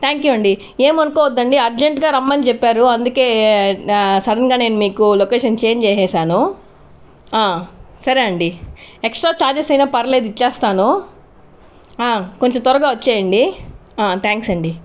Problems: none marked